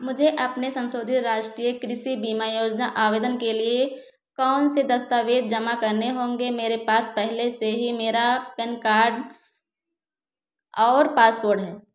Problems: none marked